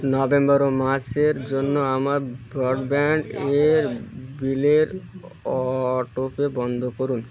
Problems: continuous background conversations